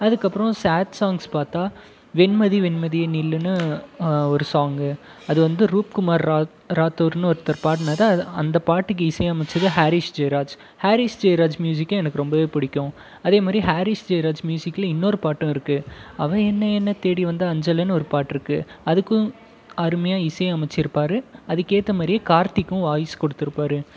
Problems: background conversations at intervals